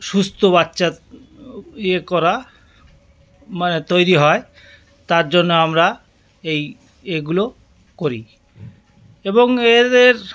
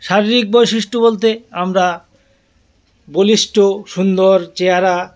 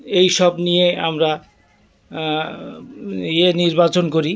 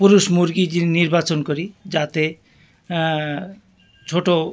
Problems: constant background noise